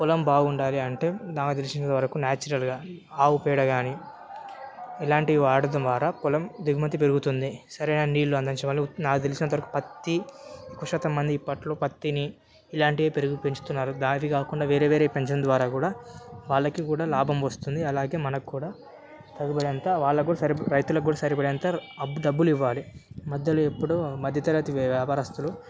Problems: none marked